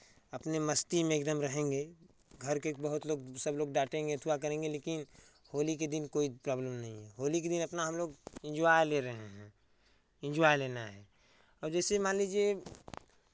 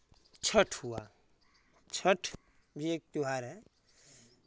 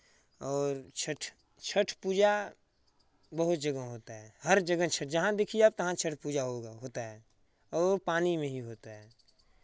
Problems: none marked